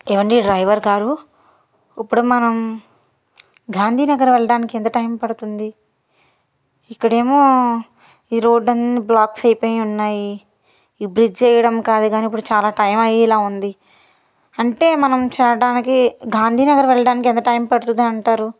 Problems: none marked